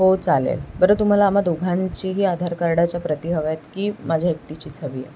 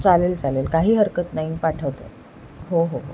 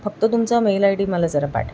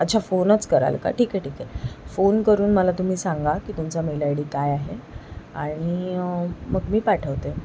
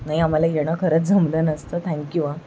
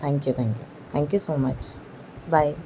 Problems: none marked